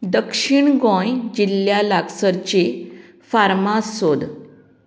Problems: background sounds at intervals